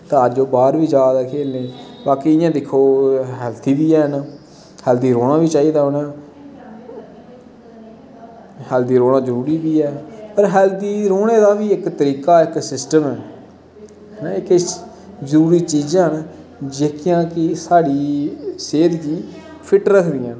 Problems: constant background noise